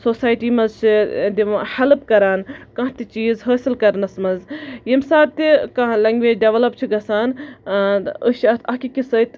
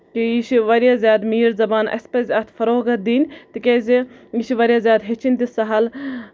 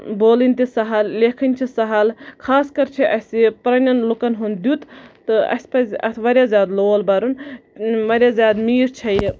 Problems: constant background noise